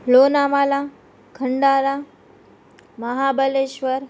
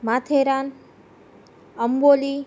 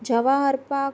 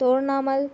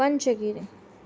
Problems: none marked